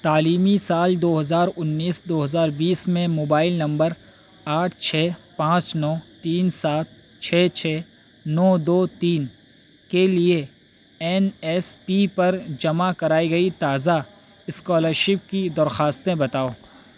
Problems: constant background noise